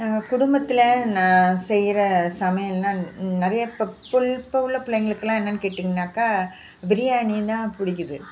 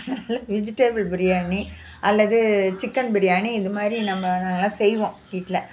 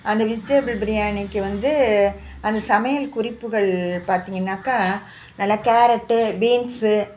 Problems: background sounds at intervals